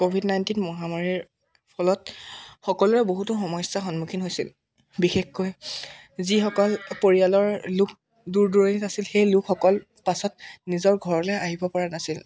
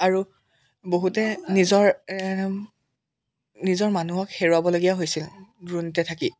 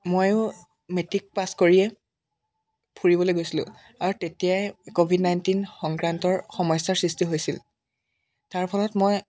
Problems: background sounds at intervals